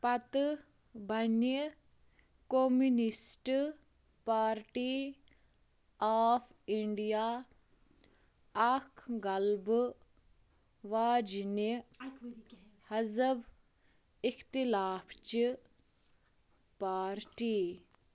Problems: constant background noise, low volume